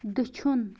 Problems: constant background noise, low volume